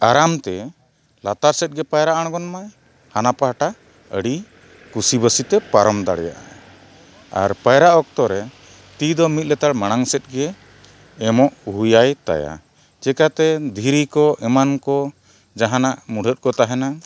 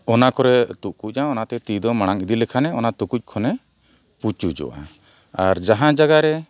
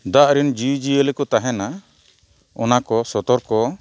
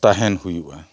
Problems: background sounds at intervals